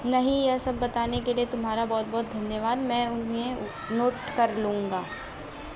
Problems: constant background noise